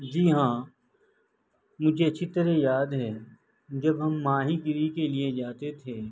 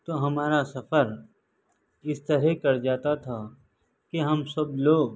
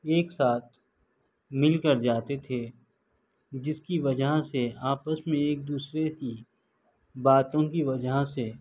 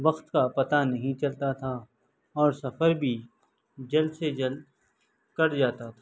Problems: background sounds at intervals